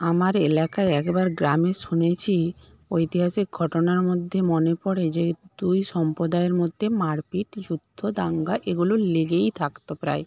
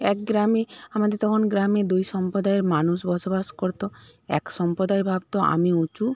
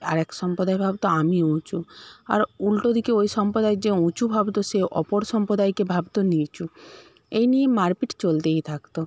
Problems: none marked